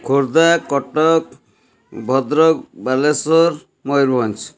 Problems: constant background noise